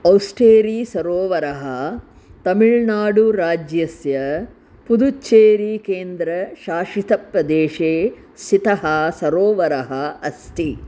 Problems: constant background noise